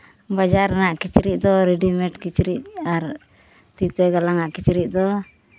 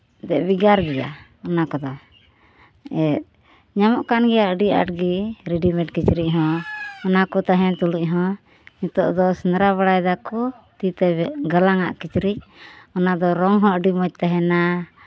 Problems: background sounds at intervals